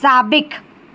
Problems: constant background noise